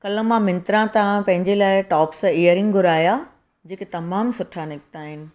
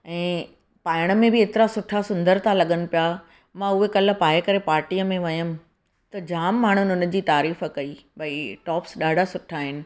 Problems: none marked